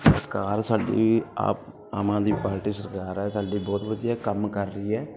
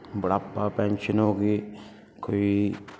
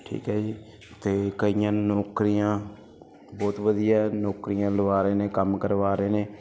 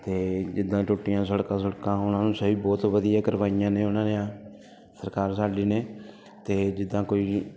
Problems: none marked